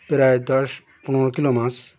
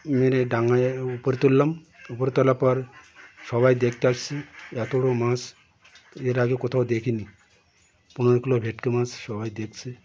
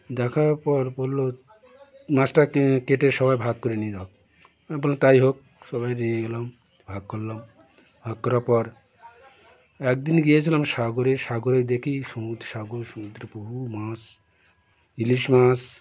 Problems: continuous background conversations